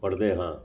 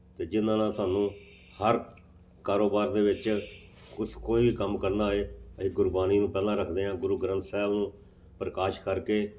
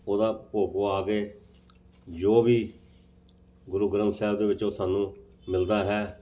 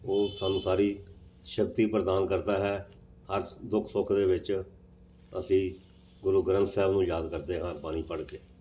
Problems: background sounds at intervals